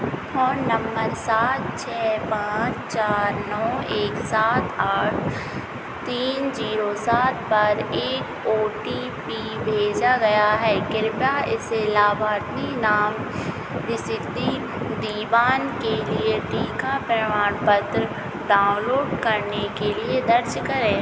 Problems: constant background noise